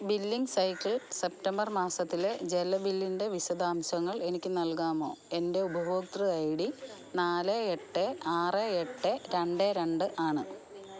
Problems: background conversations at intervals